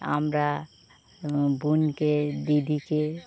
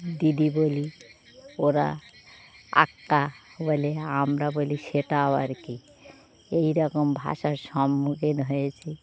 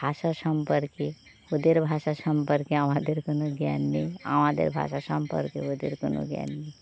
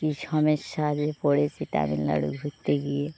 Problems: none marked